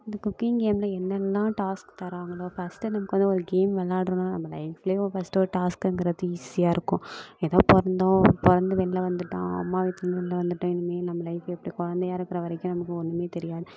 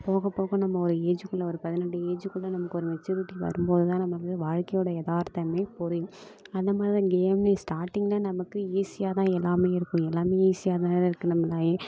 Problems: none marked